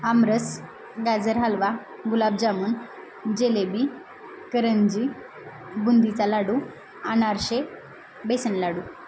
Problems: constant background noise